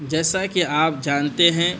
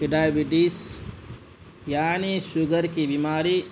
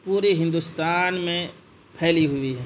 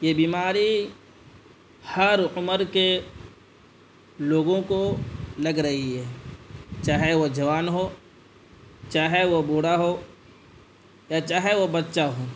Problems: constant background noise